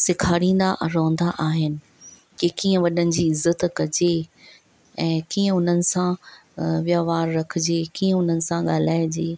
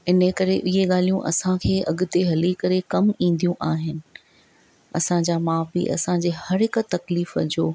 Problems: none marked